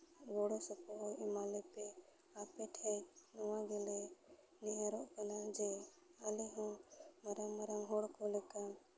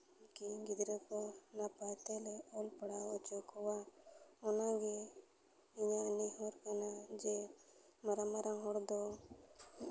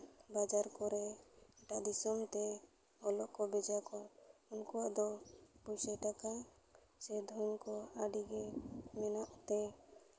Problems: background sounds at intervals, low volume